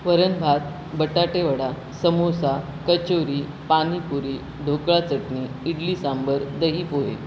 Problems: constant background noise